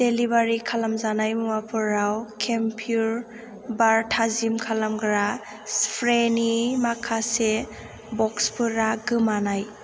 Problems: constant background noise